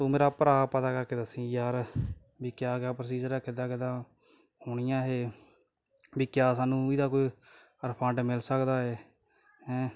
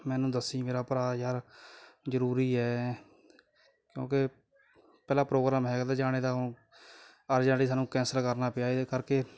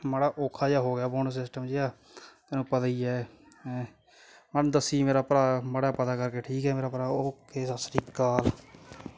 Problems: background sounds at intervals